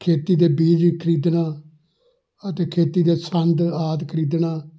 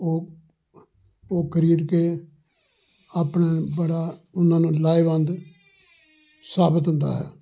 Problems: background sounds at intervals, background conversations at intervals